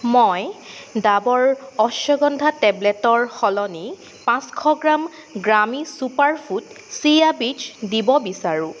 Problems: none marked